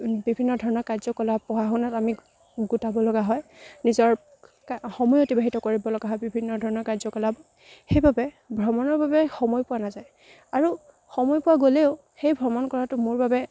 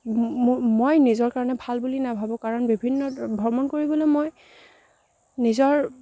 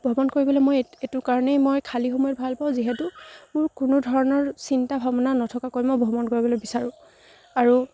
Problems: none marked